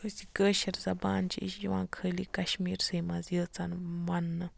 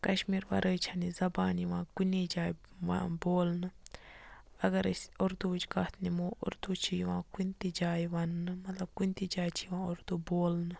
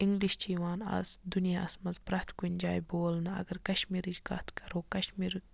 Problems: none marked